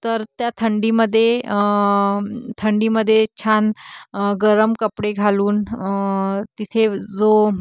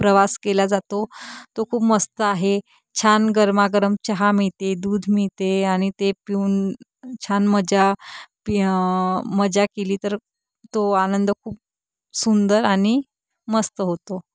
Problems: none marked